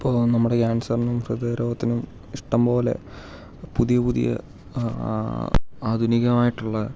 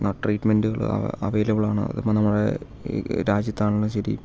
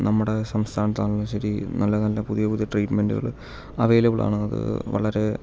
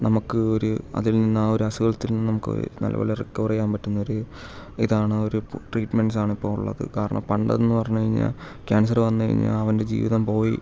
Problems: constant background noise, low volume